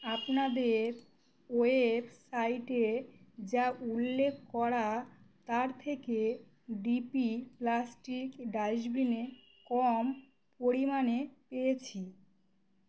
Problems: constant background noise